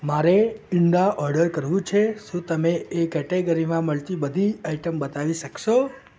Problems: background sounds at intervals, continuous background conversations